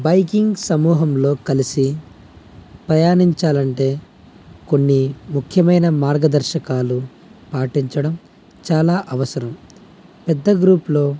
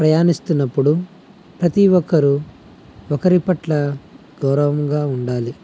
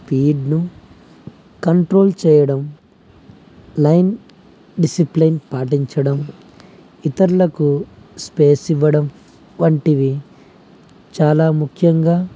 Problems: none marked